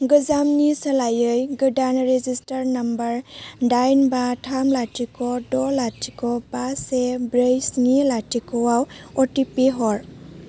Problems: low volume